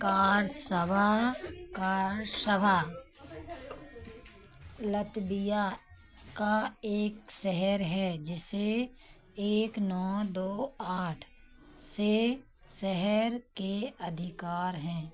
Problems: none marked